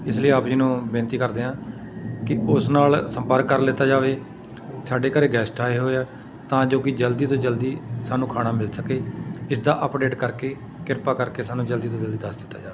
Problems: constant background noise